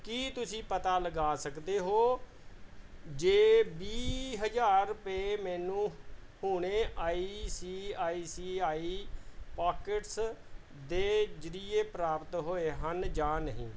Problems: background sounds at intervals